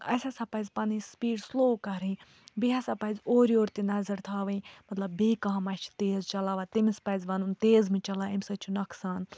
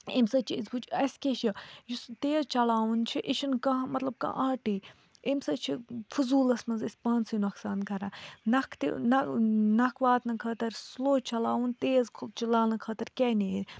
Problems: none marked